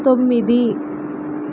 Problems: constant background noise